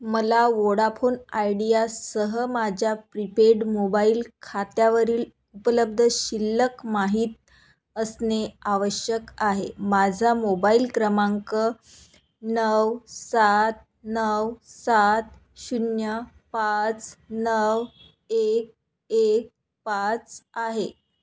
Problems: constant background noise